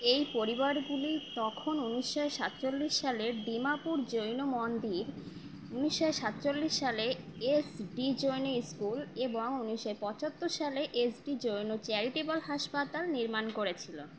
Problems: constant background noise